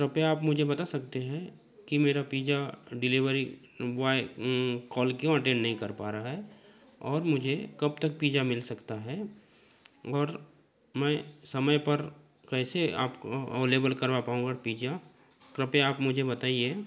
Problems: background sounds at intervals, continuous background conversations